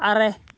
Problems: none marked